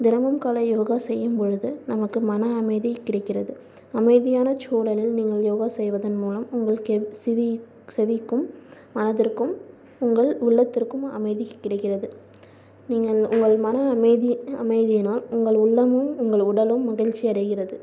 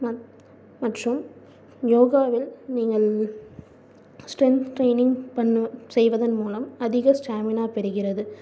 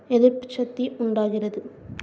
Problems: low volume